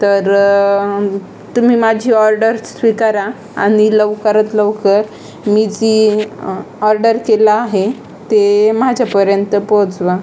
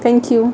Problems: constant background noise, continuous background conversations